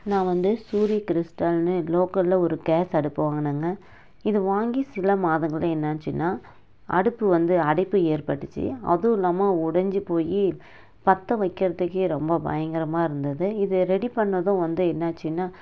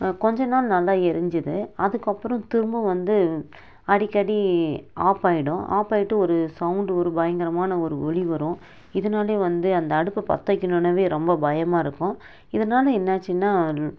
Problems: none marked